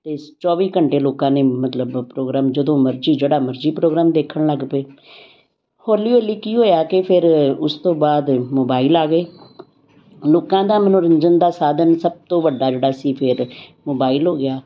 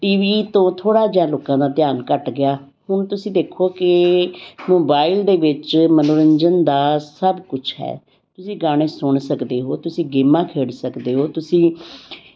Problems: none marked